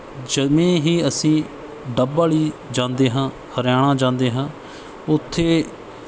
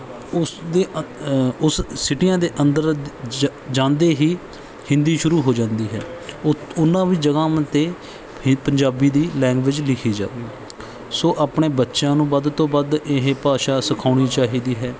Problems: background sounds at intervals